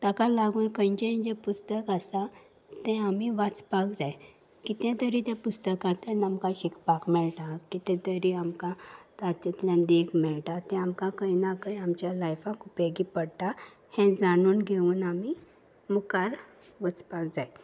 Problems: background sounds at intervals